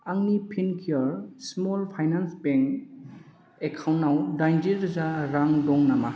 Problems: background sounds at intervals